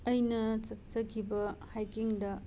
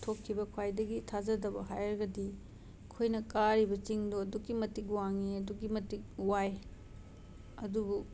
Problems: background sounds at intervals